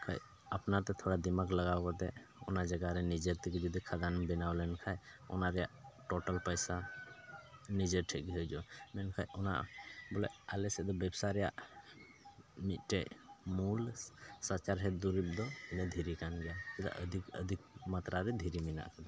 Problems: constant background noise, background conversations at intervals